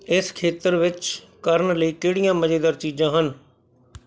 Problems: background sounds at intervals